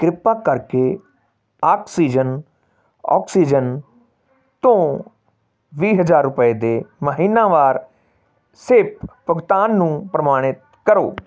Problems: background sounds at intervals